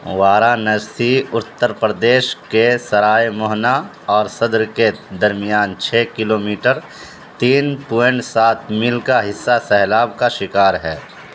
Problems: constant background noise